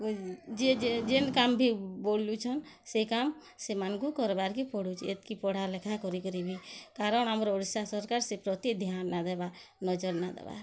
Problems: none marked